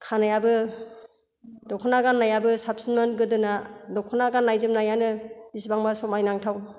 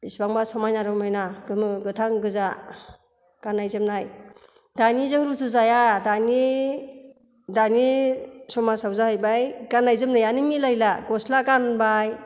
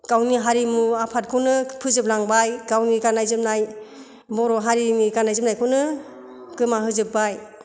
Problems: none marked